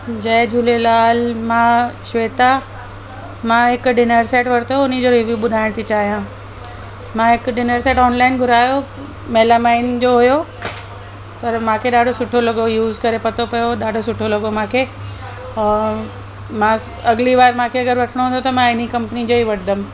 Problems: constant background noise, echo